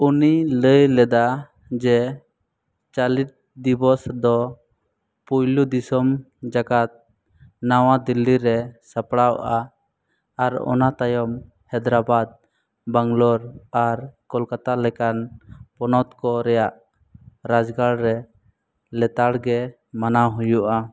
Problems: none marked